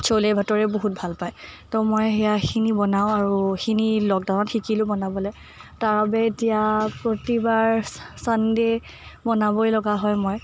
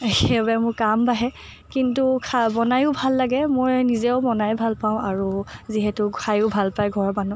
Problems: none marked